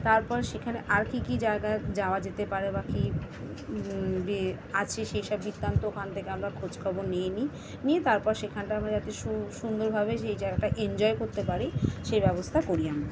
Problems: constant background noise, continuous background conversations